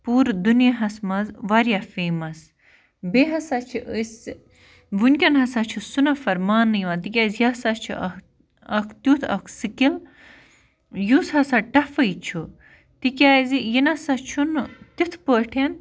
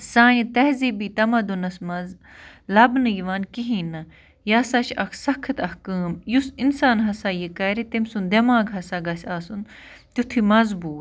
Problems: constant background noise